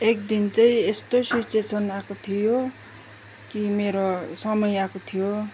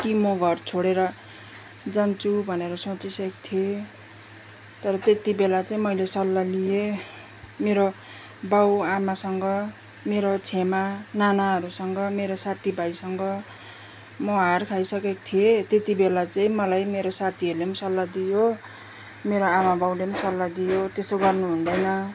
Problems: background sounds at intervals